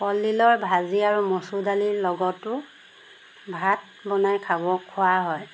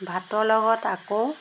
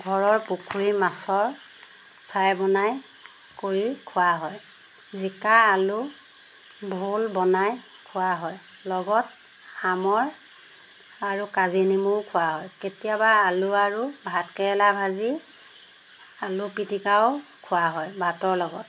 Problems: background sounds at intervals